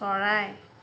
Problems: constant background noise